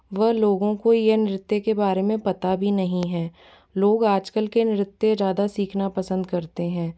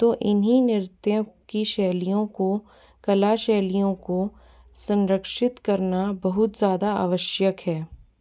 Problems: background sounds at intervals